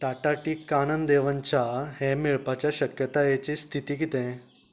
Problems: continuous background conversations